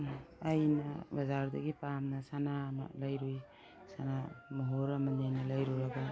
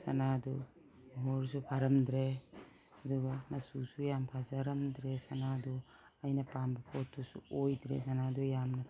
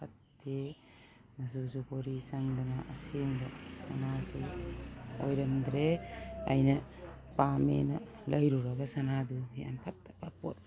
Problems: background sounds at intervals